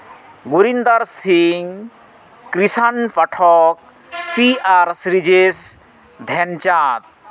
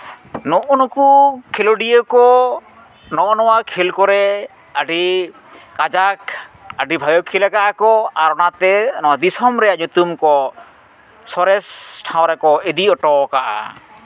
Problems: none marked